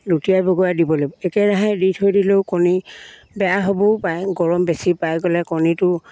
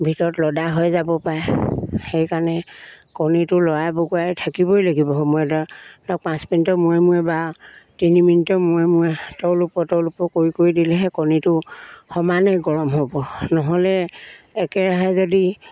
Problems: background sounds at intervals